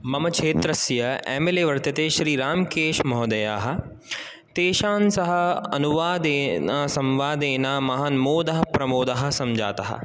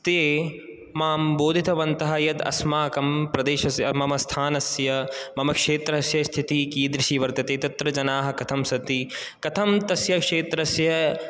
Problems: none marked